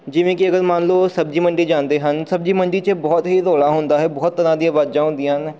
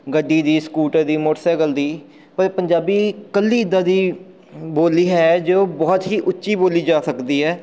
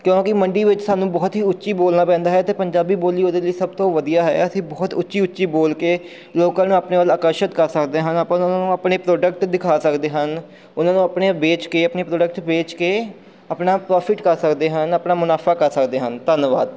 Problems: background sounds at intervals